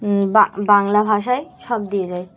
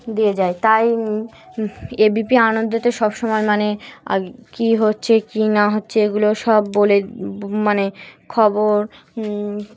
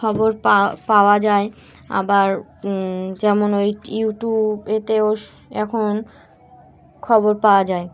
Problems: constant background noise, continuous background conversations